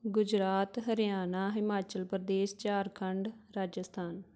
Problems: none marked